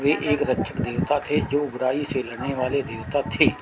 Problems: constant background noise